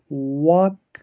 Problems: background sounds at intervals